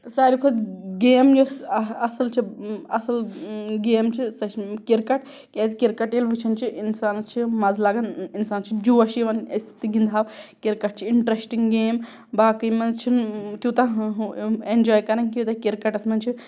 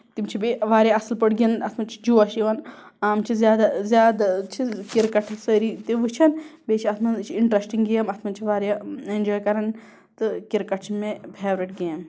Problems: background sounds at intervals